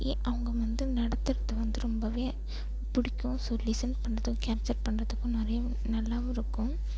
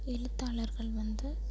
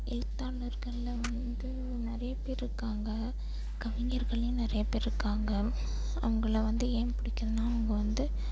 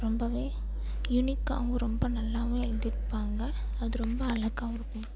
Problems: low volume